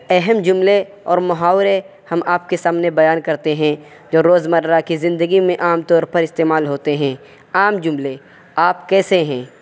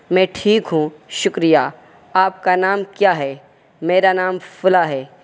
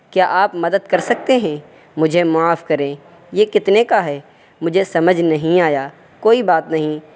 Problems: none marked